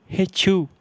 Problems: none marked